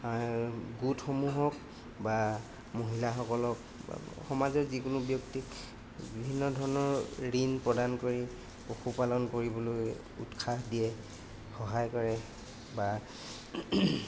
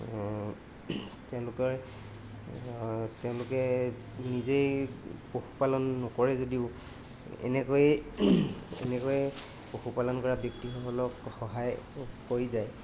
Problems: constant background noise